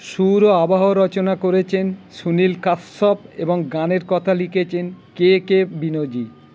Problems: constant background noise